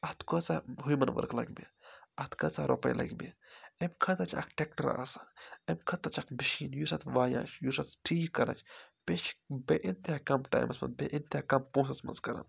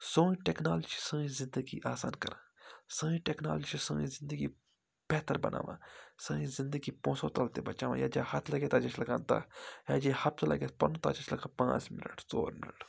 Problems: none marked